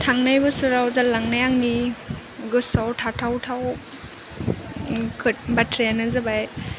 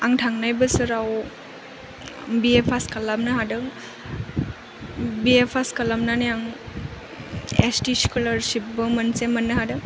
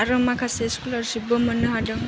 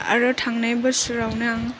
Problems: constant background noise